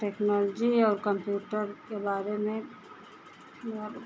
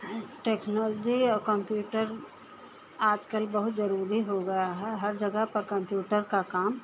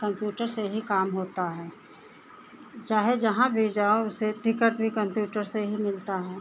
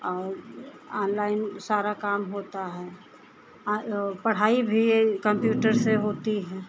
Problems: constant background noise, continuous background conversations